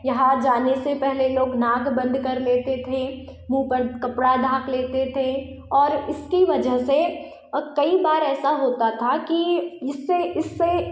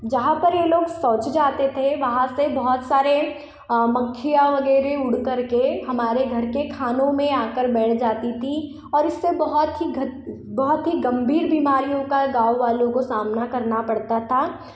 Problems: echo